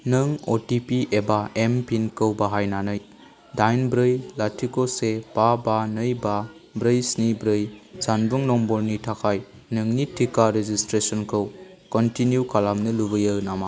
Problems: background sounds at intervals